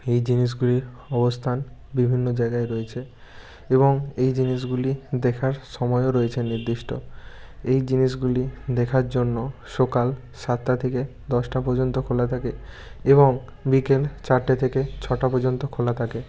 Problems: none marked